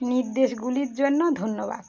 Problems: constant background noise